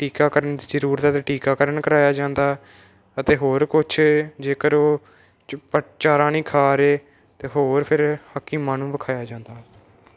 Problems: none marked